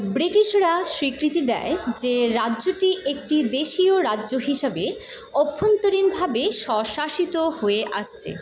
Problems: constant background noise